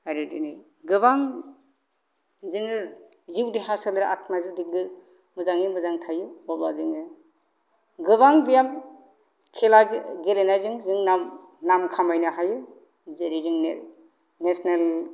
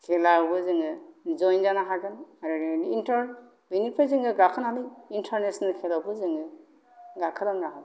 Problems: low volume